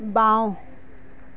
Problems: constant background noise